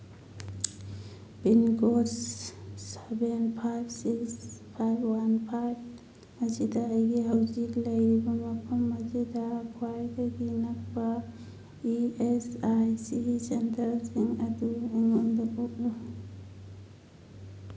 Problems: constant background noise, low volume